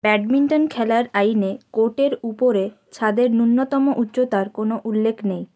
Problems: constant background noise